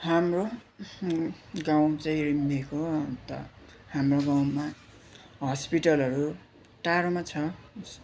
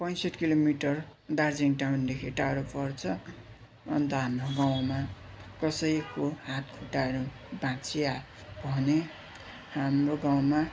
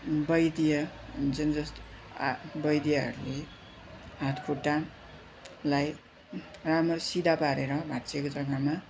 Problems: constant background noise, continuous background conversations